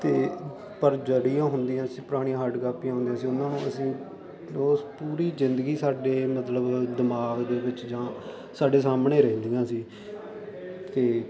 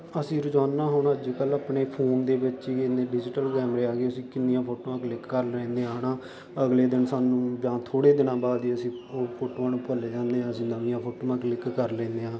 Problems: constant background noise